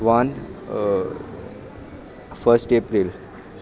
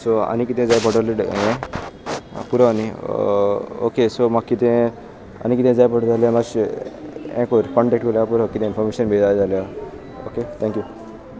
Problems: constant background noise